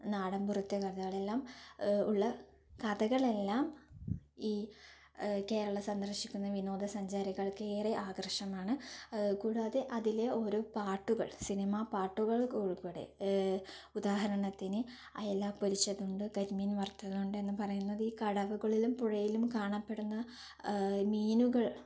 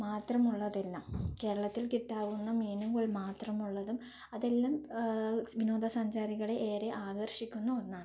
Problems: low volume